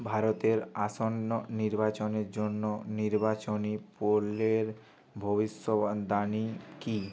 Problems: background sounds at intervals